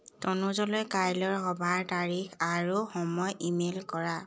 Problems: background sounds at intervals